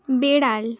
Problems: continuous background conversations